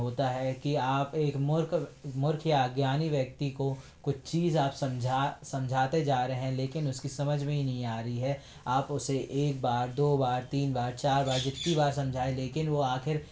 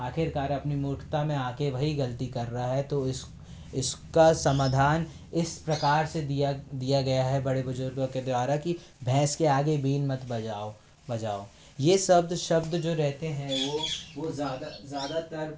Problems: constant background noise